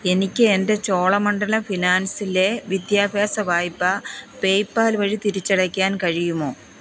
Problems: background sounds at intervals